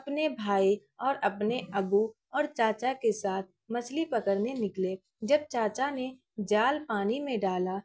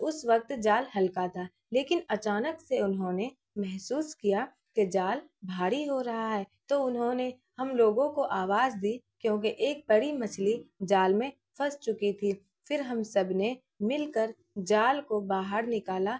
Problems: none marked